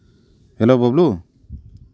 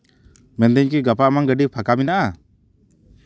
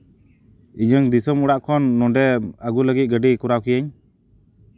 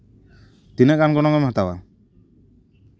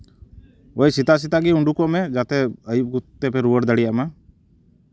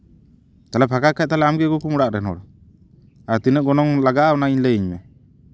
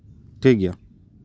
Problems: none marked